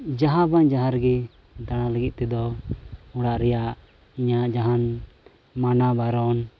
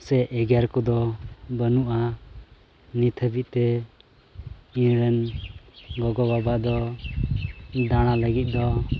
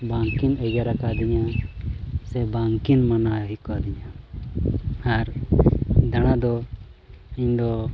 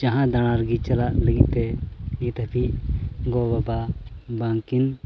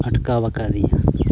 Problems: constant background noise, low volume